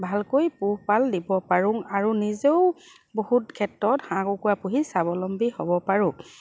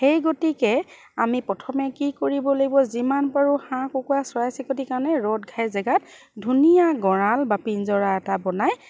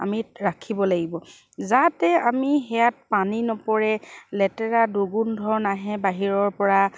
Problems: background sounds at intervals